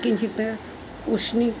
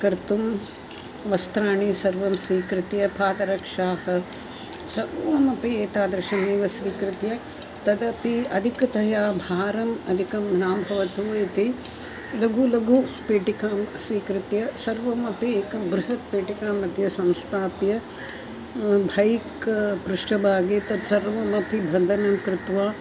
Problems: constant background noise, continuous background conversations